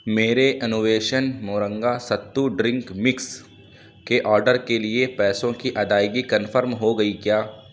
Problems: constant background noise